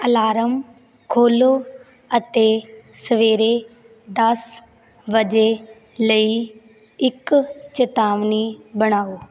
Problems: none marked